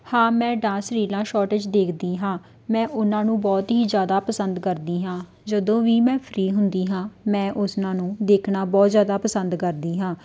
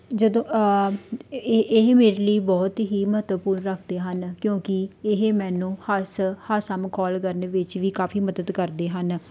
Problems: none marked